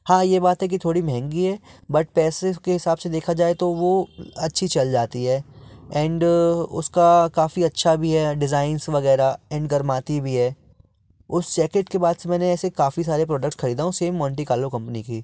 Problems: background sounds at intervals